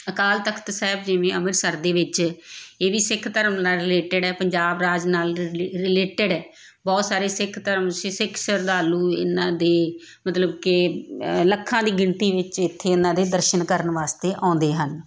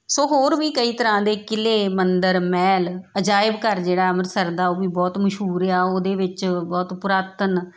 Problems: background sounds at intervals